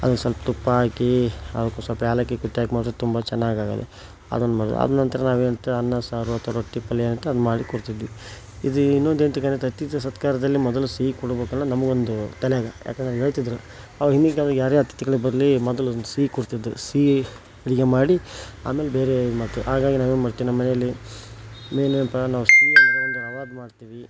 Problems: background sounds at intervals